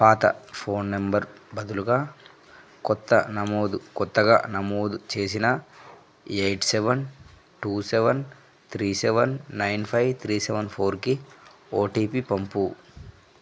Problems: none marked